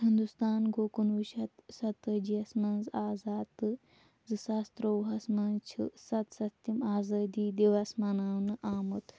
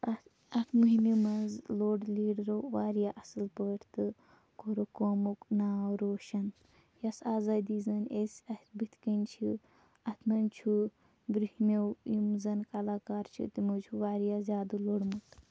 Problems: none marked